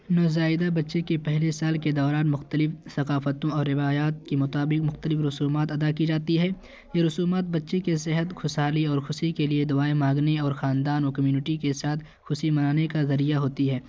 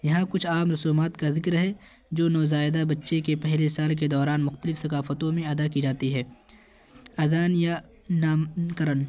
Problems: constant background noise